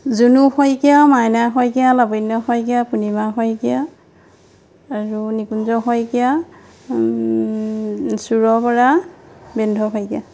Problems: constant background noise